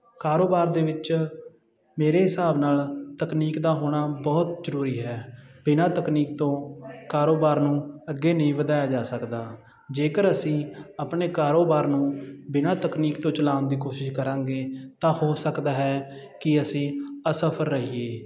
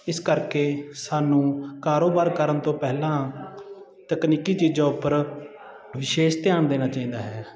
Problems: constant background noise